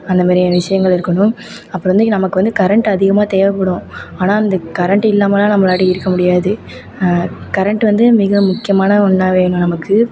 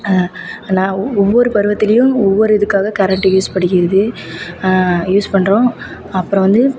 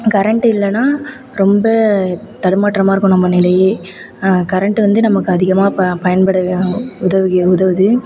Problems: constant background noise